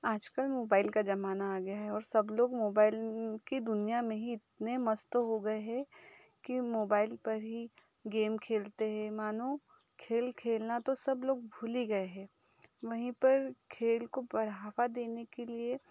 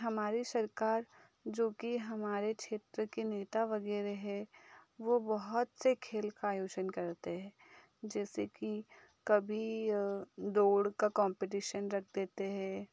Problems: background sounds at intervals